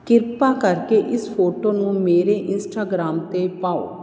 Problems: constant background noise